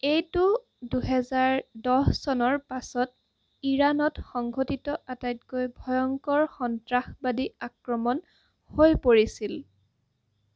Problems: constant background noise